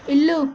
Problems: constant background noise